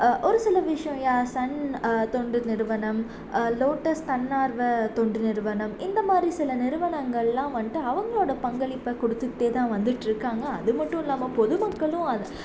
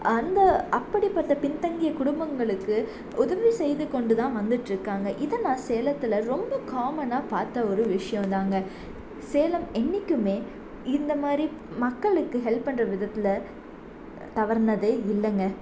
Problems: constant background noise